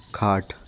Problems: none marked